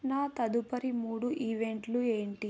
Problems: low volume